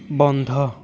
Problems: constant background noise